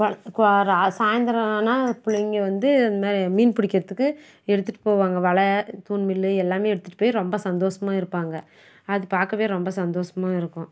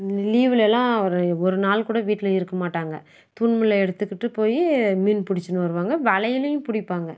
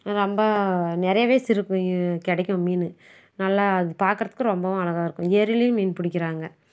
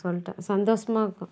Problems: none marked